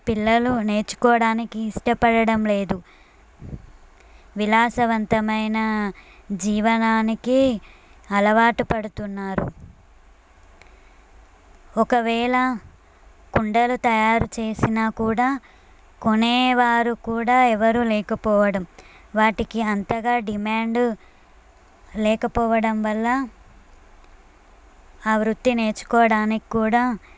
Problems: none marked